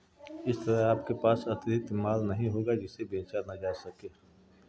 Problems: background sounds at intervals